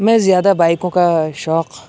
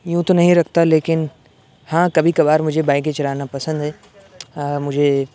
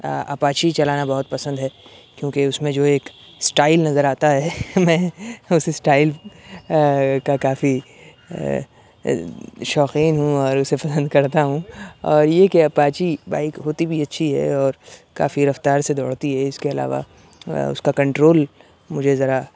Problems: constant background noise